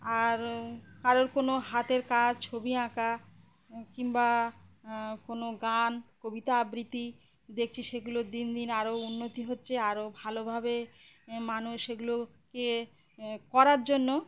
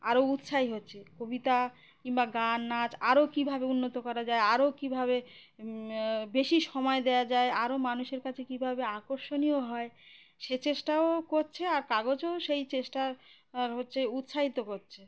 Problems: background sounds at intervals